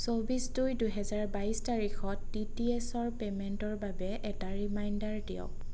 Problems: constant background noise